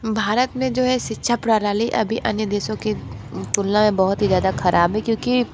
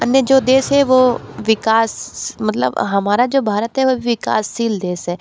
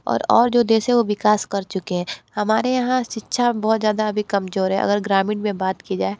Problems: constant background noise